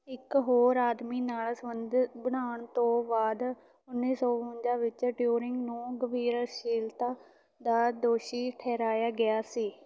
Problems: none marked